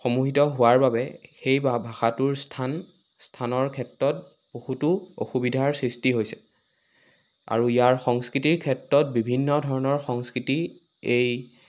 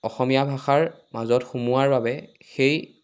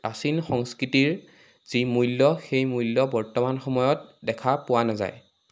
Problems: constant background noise